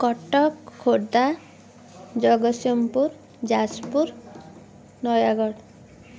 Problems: continuous background conversations